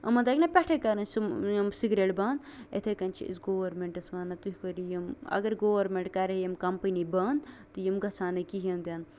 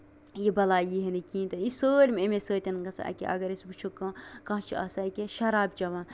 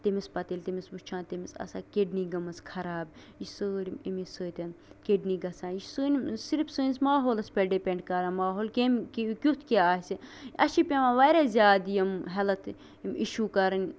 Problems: constant background noise